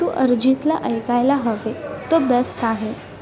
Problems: constant background noise, background conversations at intervals